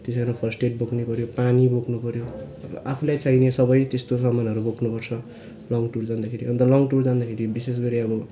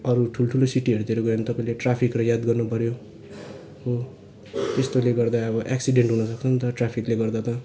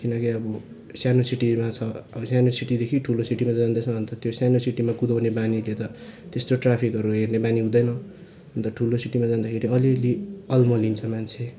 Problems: none marked